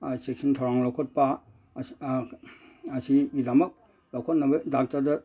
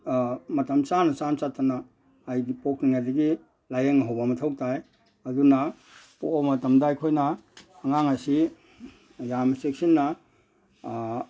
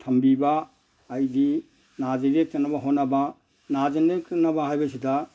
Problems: background sounds at intervals